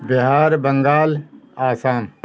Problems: none marked